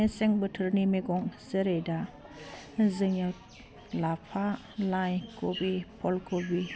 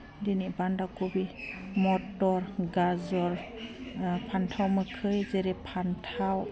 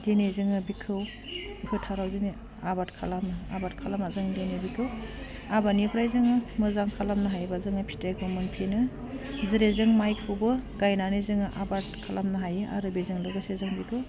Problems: low volume